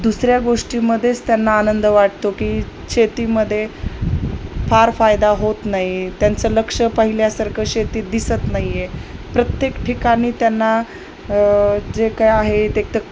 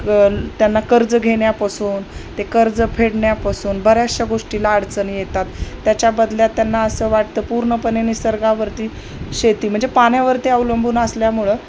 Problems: none marked